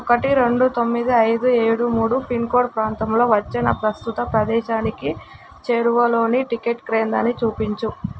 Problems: constant background noise